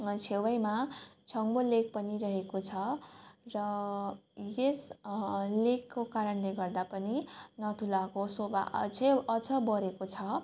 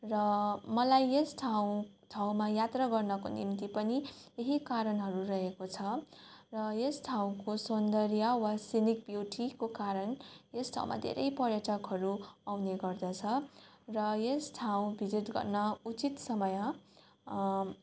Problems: none marked